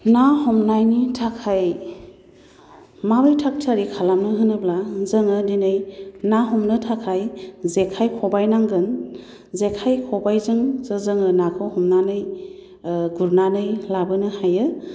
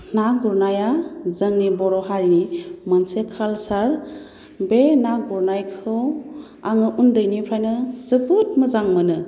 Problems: none marked